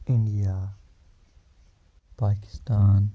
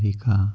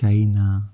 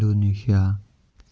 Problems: none marked